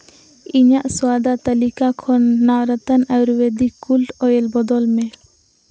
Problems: constant background noise